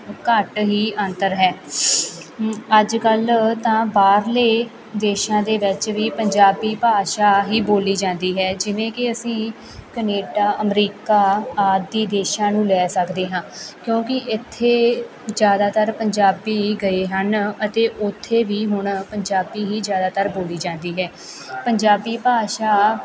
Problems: continuous background conversations